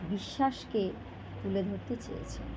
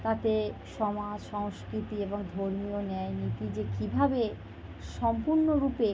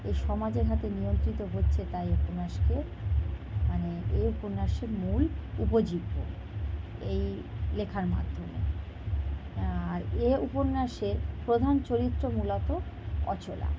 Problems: constant background noise